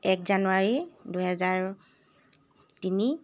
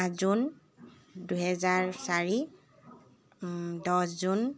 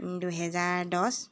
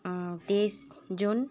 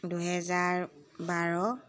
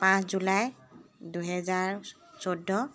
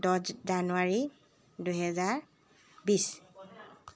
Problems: constant background noise, background conversations at intervals